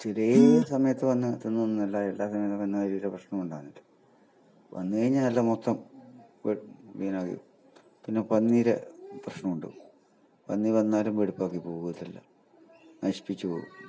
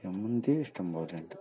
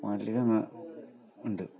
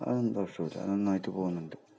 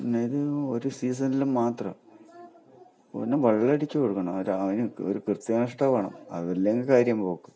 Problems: low volume